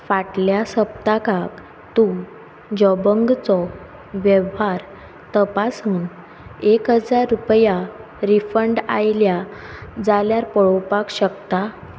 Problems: constant background noise